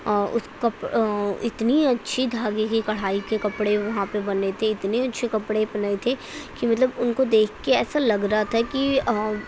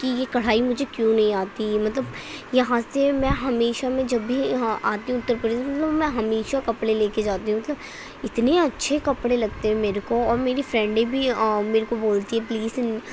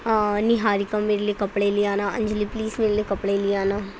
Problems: constant background noise